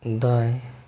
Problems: low volume